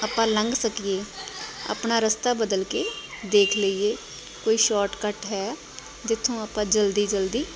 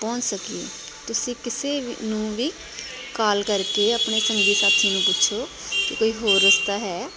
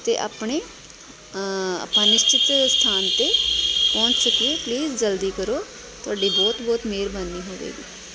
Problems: constant background noise